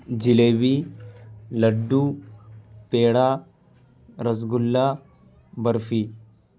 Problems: none marked